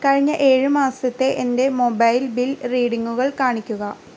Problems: constant background noise